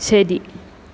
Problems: none marked